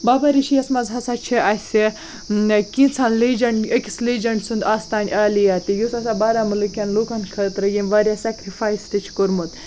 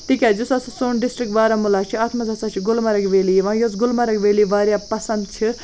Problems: none marked